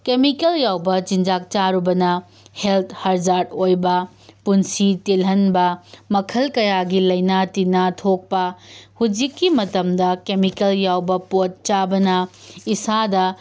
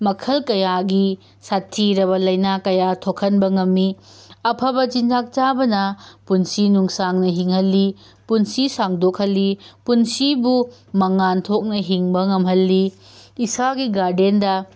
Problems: none marked